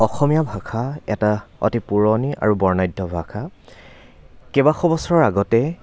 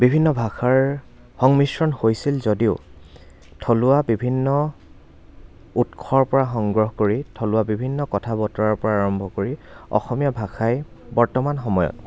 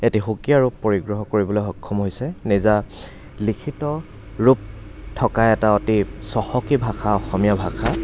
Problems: none marked